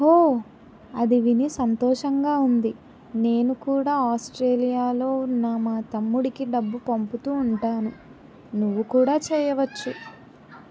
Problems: none marked